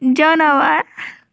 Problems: none marked